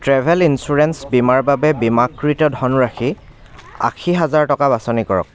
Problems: constant background noise, continuous background conversations